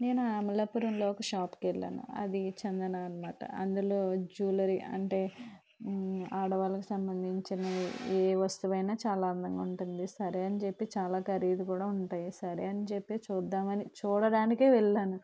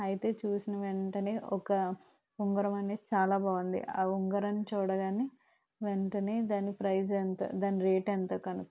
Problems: constant background noise